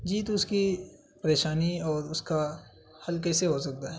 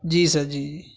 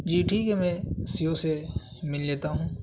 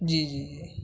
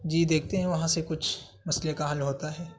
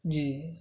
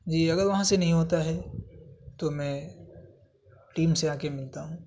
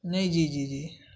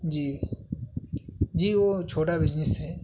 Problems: constant background noise